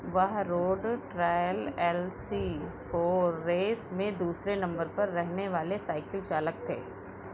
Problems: none marked